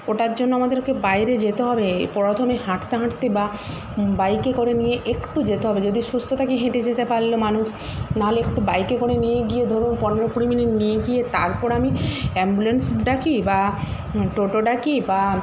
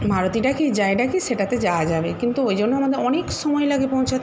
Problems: constant background noise